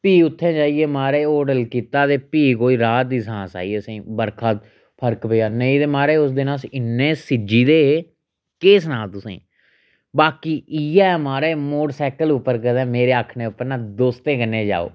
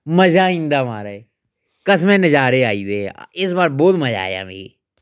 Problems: none marked